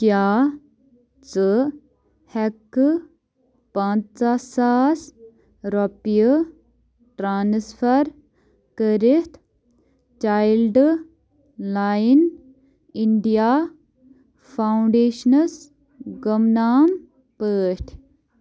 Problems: none marked